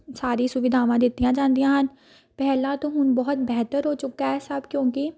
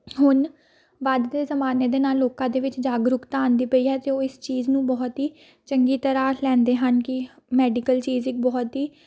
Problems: continuous background conversations